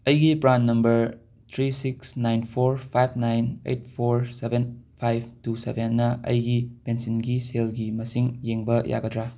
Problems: none marked